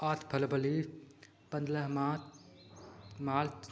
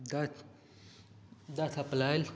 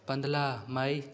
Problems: constant background noise